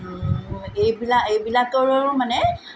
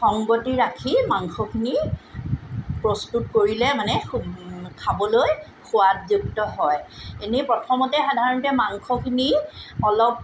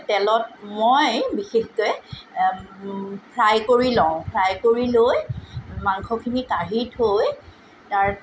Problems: none marked